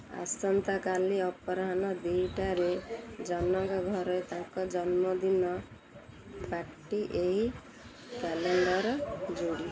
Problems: constant background noise